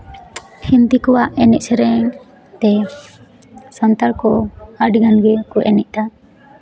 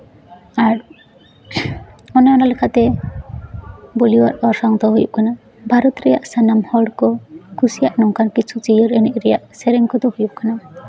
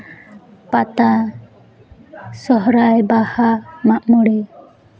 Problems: background conversations at intervals